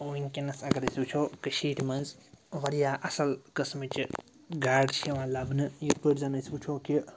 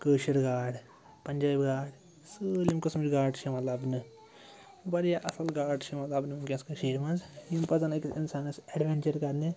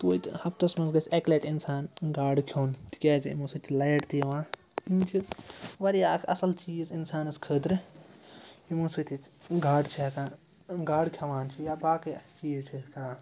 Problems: constant background noise